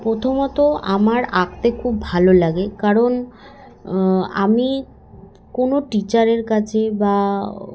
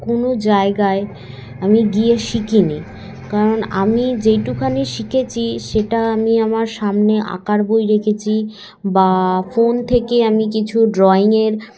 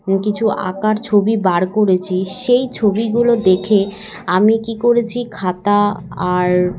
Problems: constant background noise, continuous background conversations